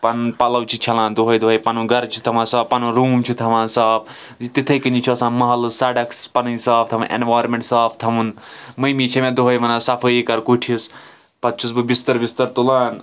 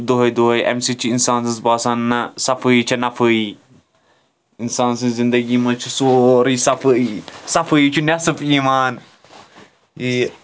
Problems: background sounds at intervals, continuous background conversations